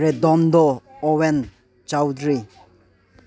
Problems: low volume